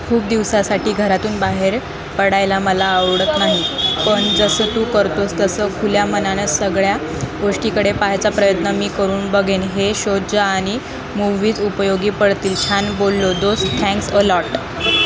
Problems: constant background noise, background conversations at intervals